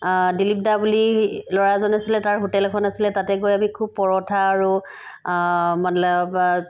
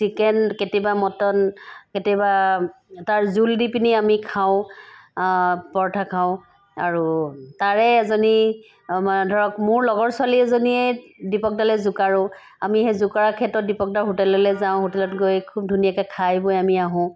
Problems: none marked